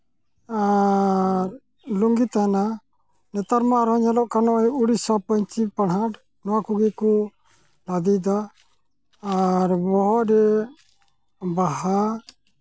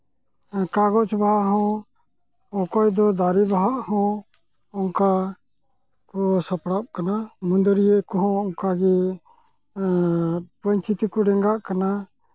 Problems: constant background noise